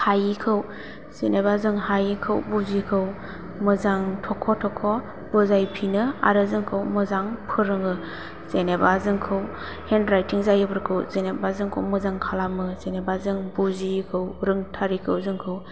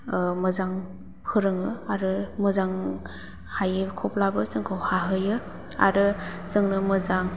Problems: low volume